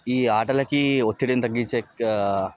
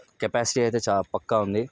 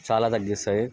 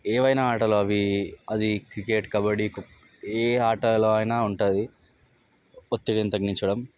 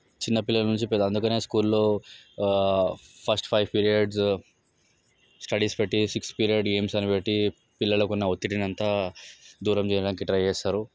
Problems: background sounds at intervals, background conversations at intervals